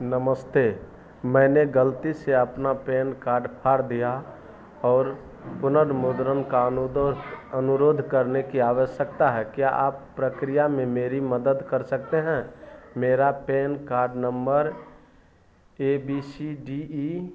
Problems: none marked